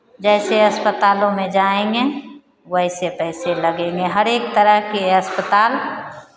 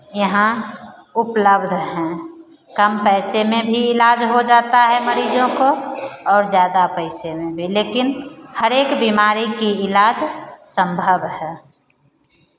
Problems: none marked